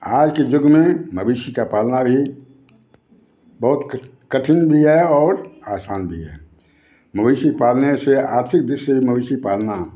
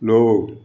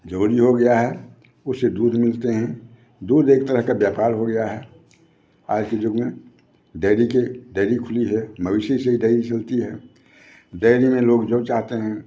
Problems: background sounds at intervals, background conversations at intervals